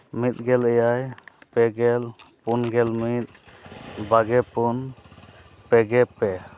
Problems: background sounds at intervals